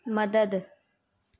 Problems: background sounds at intervals